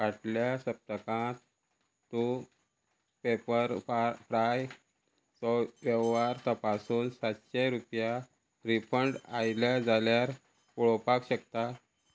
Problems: constant background noise